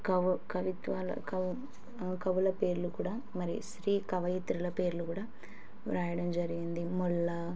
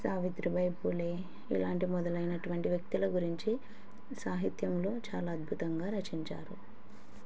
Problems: background sounds at intervals